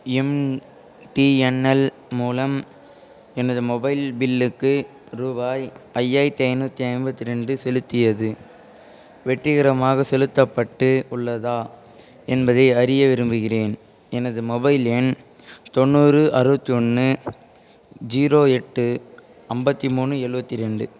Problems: continuous background conversations